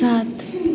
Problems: constant background noise